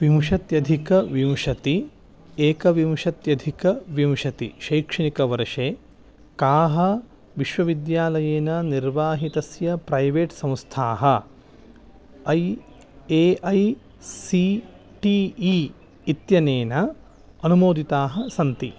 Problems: background sounds at intervals